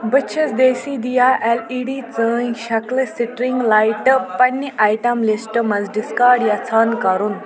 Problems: constant background noise, continuous background conversations